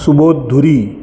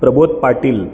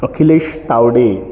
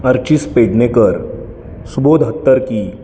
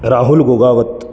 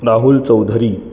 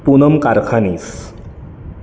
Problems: none marked